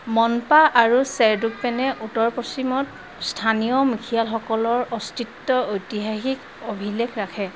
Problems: constant background noise